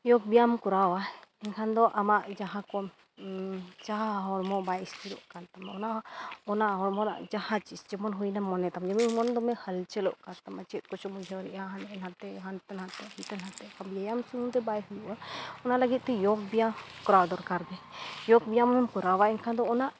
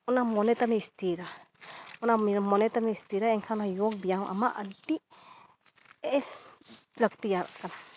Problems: background sounds at intervals